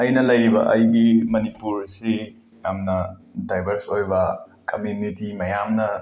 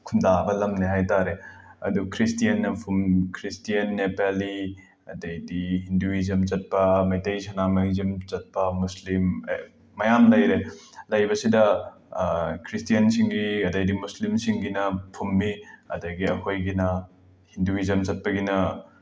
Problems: background sounds at intervals